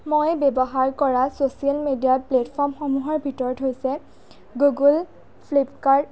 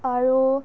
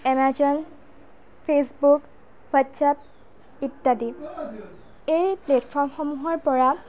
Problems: background conversations at intervals, low volume